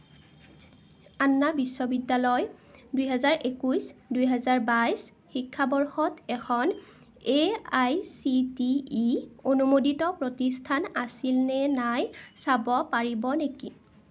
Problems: none marked